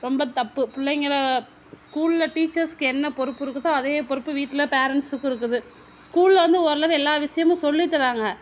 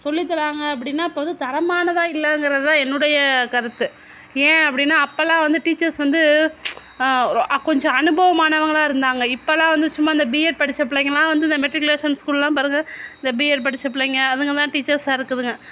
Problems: constant background noise